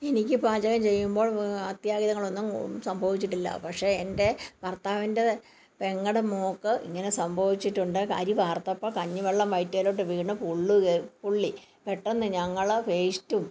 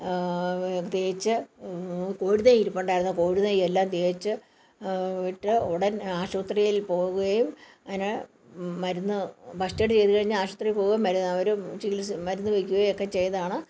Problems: background conversations at intervals